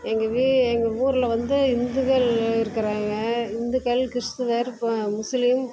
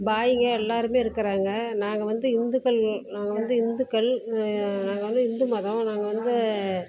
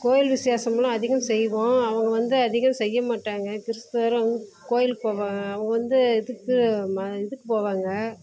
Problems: constant background noise, background conversations at intervals